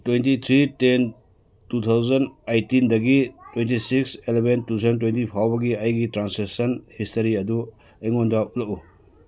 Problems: background conversations at intervals